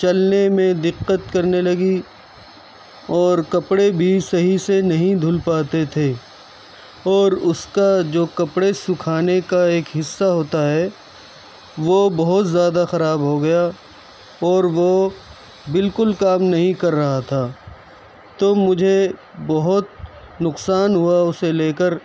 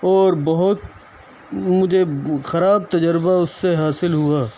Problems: constant background noise, background conversations at intervals